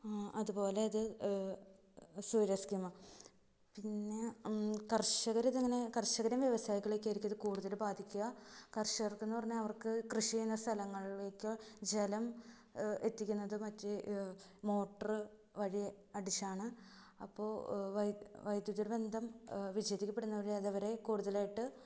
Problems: low volume